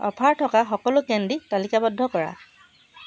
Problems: constant background noise, background conversations at intervals